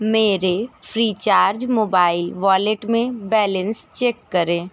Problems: none marked